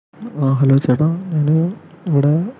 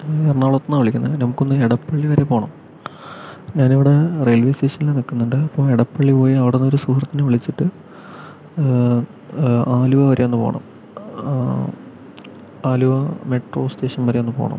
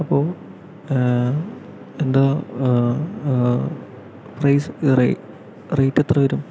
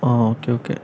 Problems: none marked